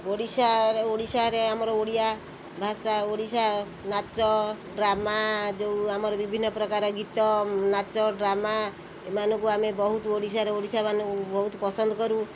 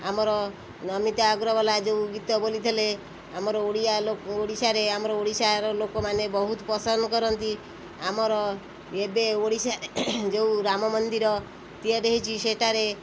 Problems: constant background noise